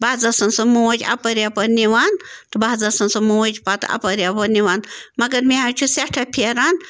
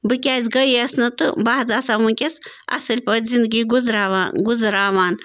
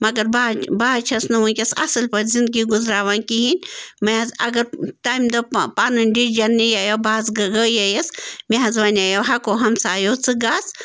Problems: constant background noise